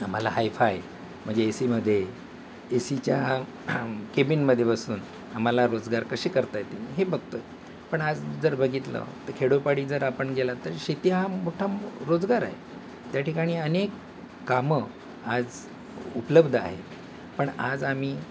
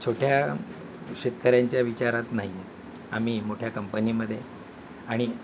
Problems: constant background noise